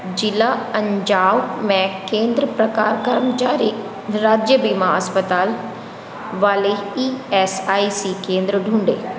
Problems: none marked